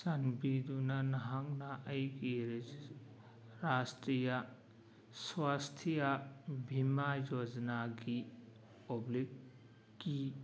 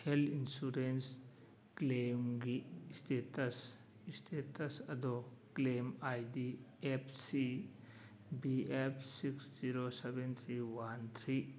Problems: background sounds at intervals